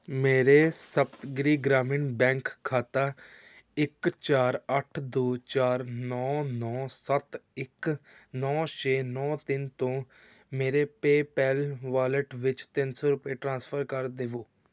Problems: background sounds at intervals